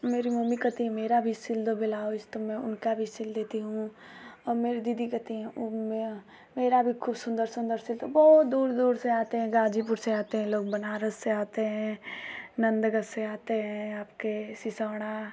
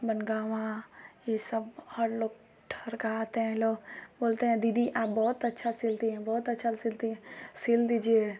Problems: constant background noise